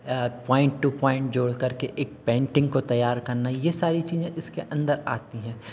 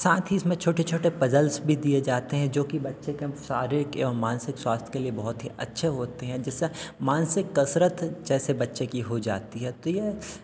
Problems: constant background noise, continuous background conversations